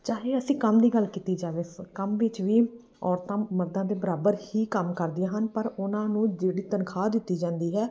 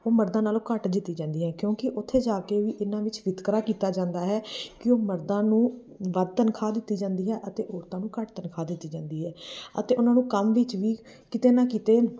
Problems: background sounds at intervals